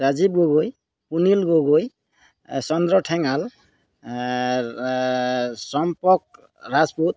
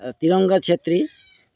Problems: background sounds at intervals